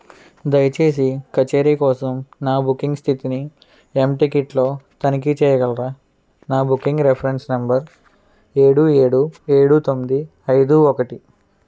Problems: none marked